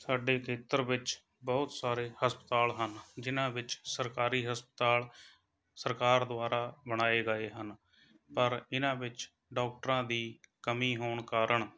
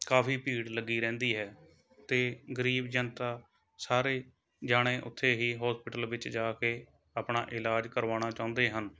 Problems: background sounds at intervals, background conversations at intervals